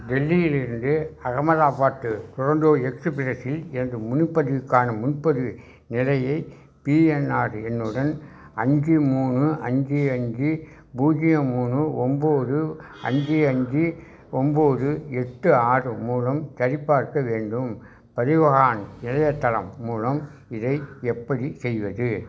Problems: background sounds at intervals